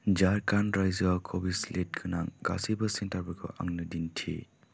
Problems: constant background noise